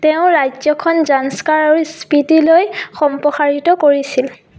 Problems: constant background noise